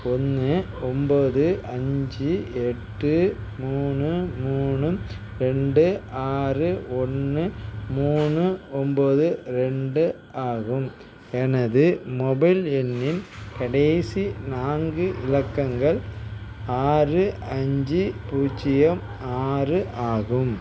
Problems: background sounds at intervals